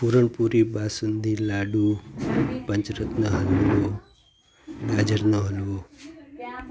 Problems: constant background noise